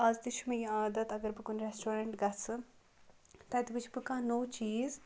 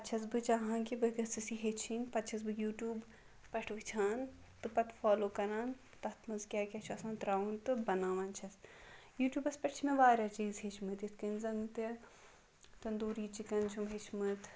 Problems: background sounds at intervals